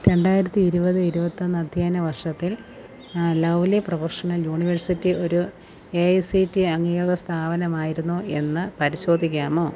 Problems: constant background noise